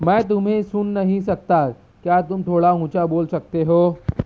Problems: none marked